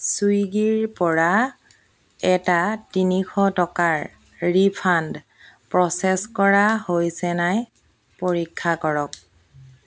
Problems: constant background noise